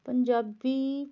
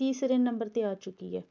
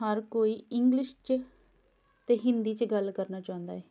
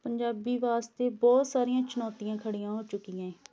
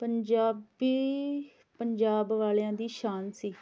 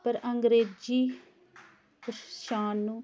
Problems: background conversations at intervals